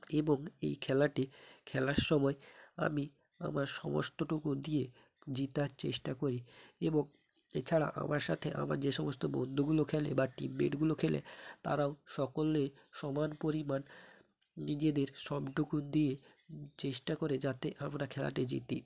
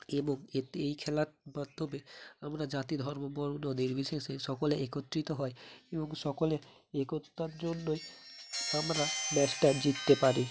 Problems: constant background noise